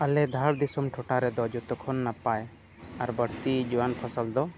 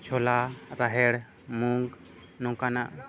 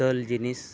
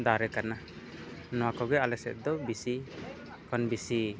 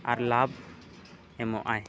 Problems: background sounds at intervals, low volume